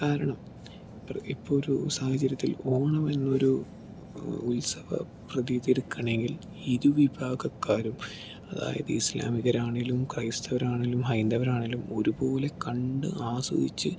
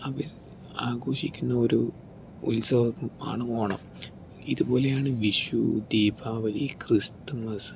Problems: none marked